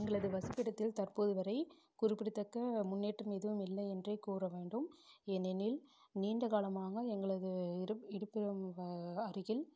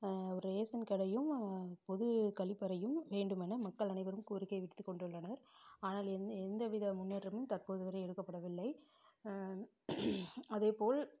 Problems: low volume